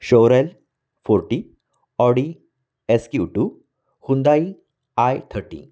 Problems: none marked